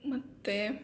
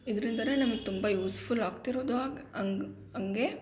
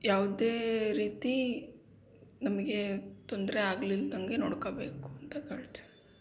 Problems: background sounds at intervals